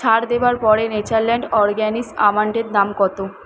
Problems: constant background noise